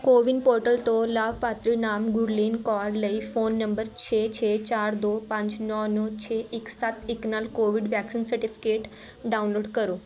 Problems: continuous background conversations